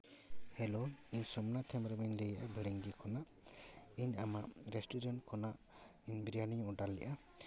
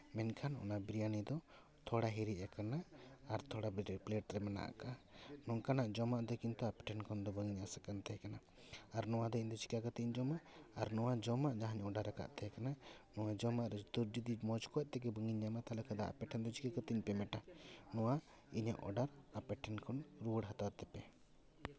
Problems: background sounds at intervals, low volume